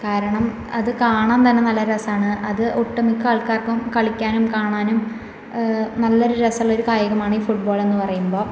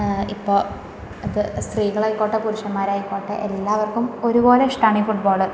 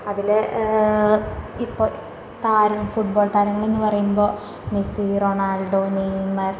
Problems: constant background noise